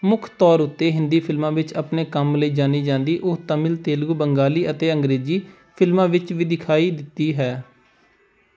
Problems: background sounds at intervals